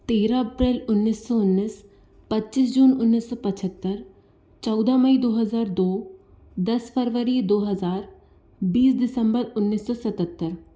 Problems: none marked